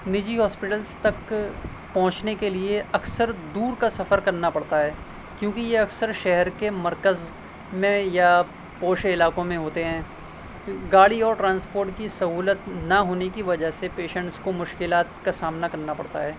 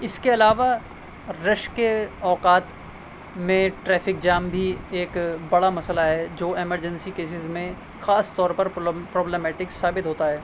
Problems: constant background noise